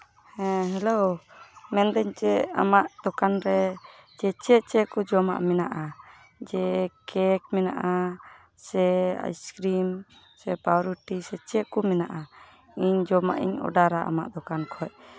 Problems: background sounds at intervals, background conversations at intervals